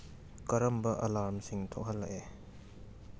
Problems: none marked